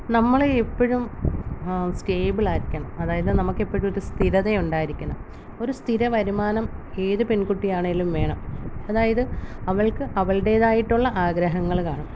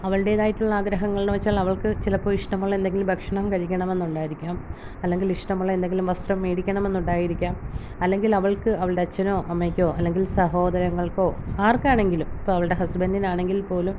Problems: low volume